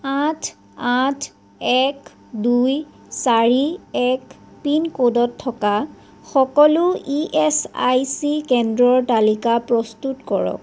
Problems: none marked